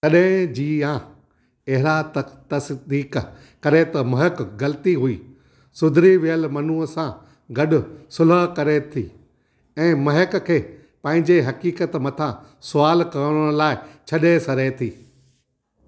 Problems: none marked